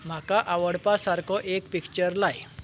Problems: background sounds at intervals